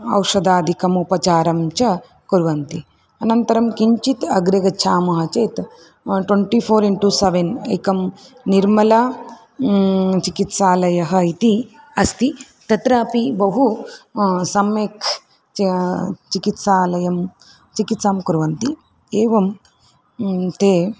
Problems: background sounds at intervals